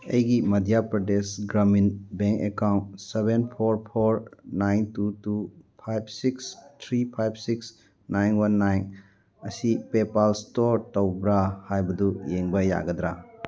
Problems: background conversations at intervals